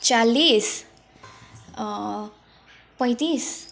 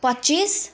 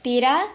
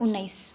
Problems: background conversations at intervals